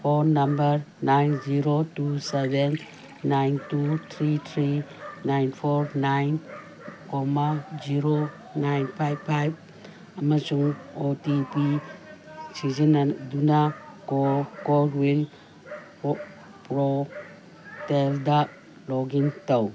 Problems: constant background noise